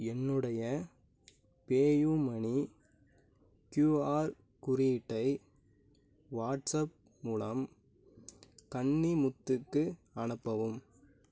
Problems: none marked